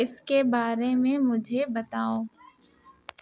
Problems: none marked